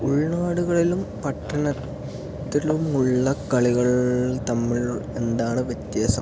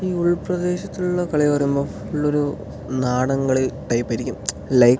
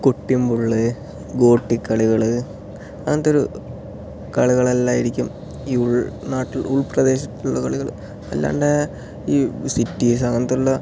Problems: low volume